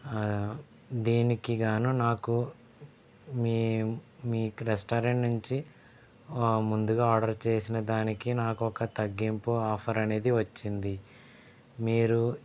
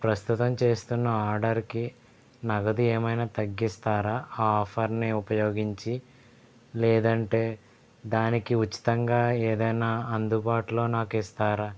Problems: background sounds at intervals